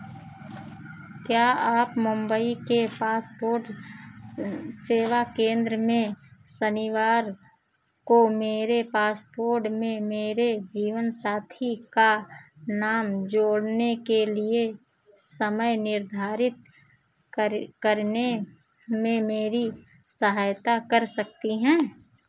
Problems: background sounds at intervals